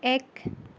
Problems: none marked